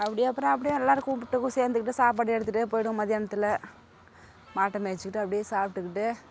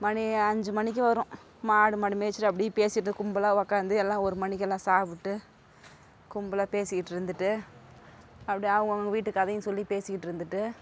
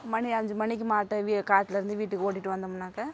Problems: none marked